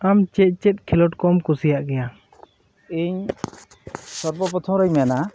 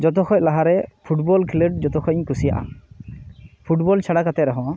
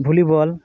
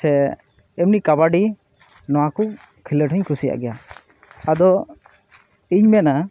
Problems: constant background noise, background conversations at intervals